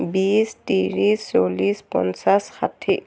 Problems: none marked